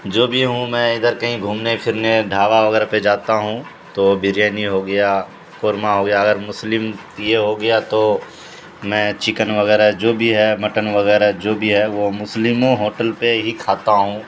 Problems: constant background noise